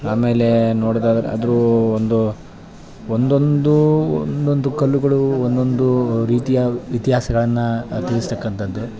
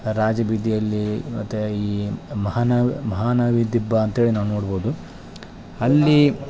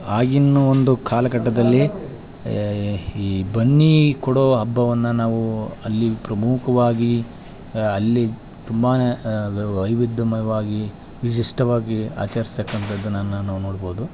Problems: background conversations at intervals